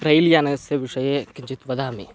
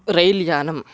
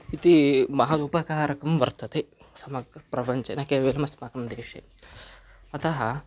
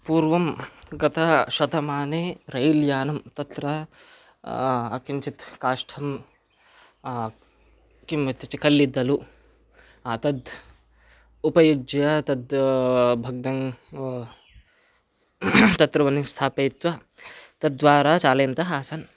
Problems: none marked